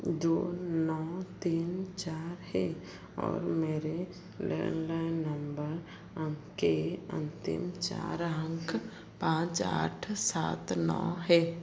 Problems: none marked